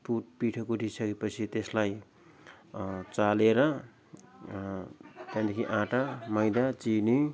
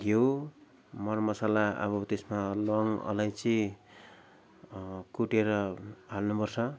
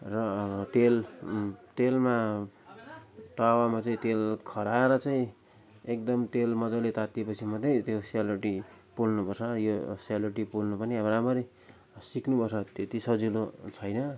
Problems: constant background noise